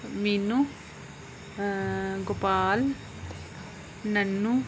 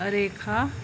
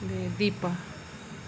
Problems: constant background noise